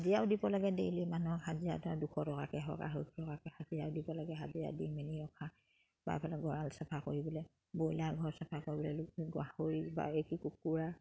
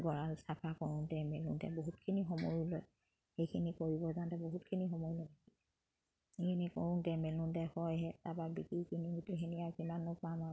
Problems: background sounds at intervals